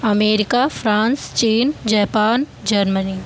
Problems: background sounds at intervals